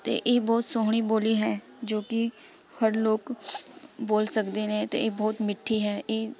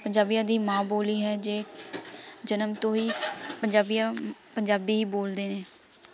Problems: background sounds at intervals, continuous background conversations